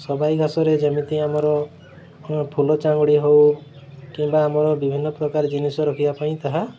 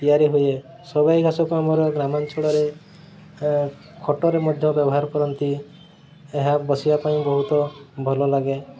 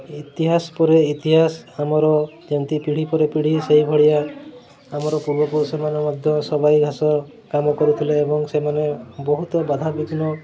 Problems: constant background noise